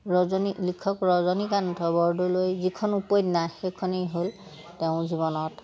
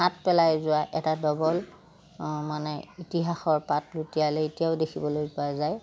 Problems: background sounds at intervals